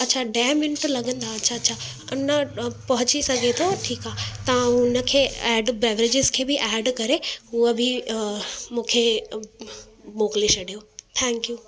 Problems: constant background noise